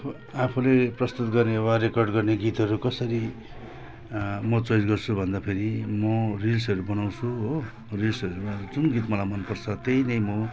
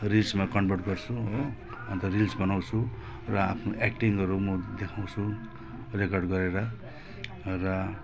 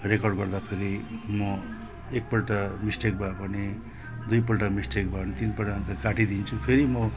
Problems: constant background noise